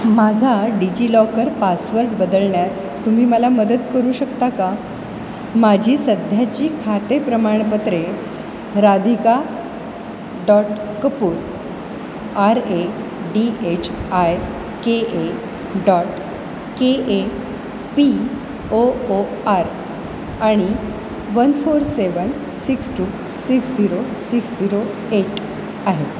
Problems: constant background noise